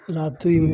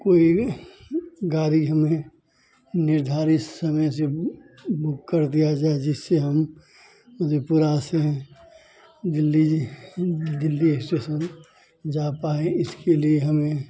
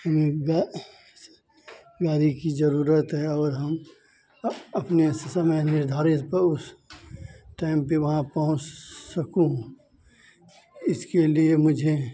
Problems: constant background noise, background conversations at intervals